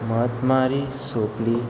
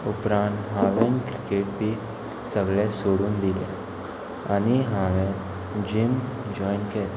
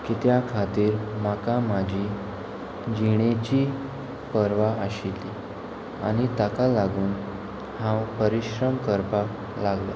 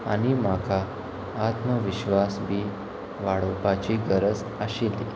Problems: none marked